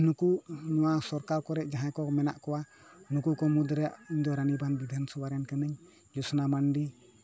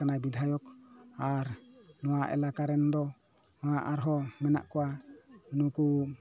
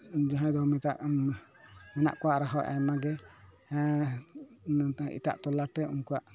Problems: none marked